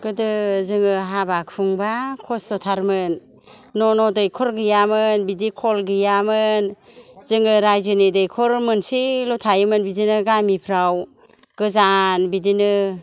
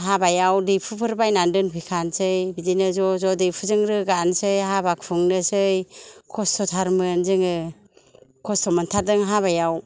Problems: low volume